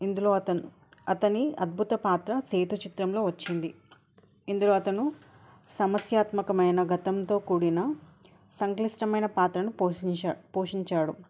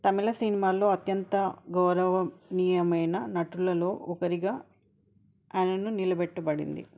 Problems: none marked